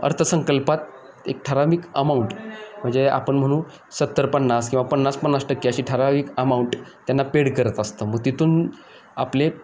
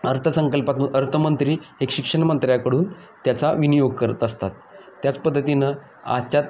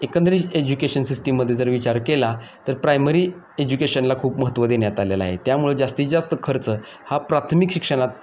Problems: none marked